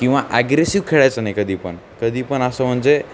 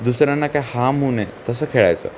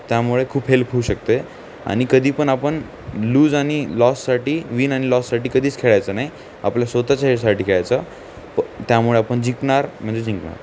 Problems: none marked